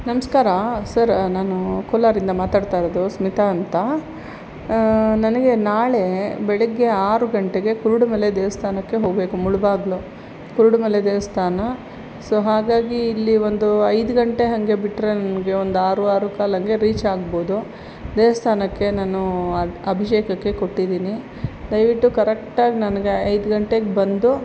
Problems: constant background noise